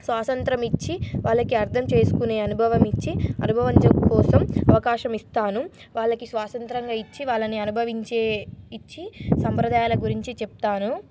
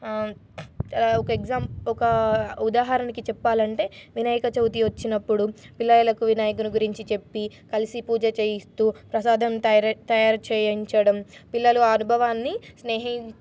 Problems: none marked